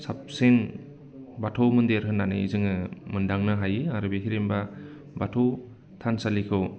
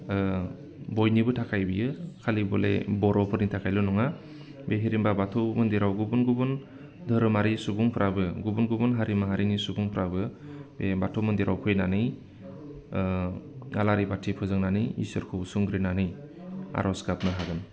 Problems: constant background noise